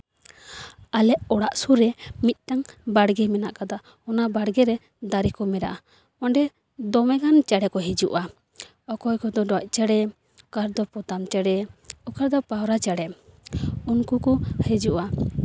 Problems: background sounds at intervals